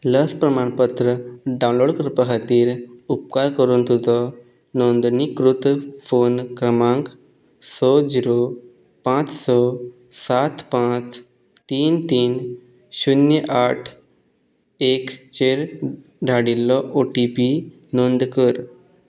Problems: none marked